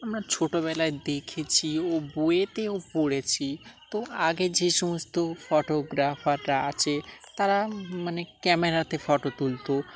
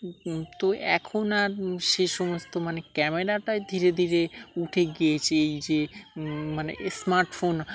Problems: constant background noise, background conversations at intervals